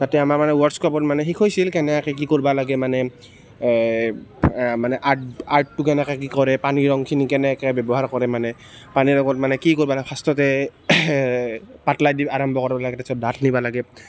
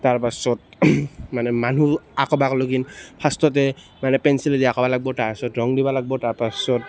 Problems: background sounds at intervals, background conversations at intervals